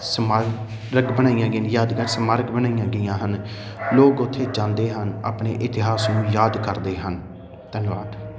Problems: constant background noise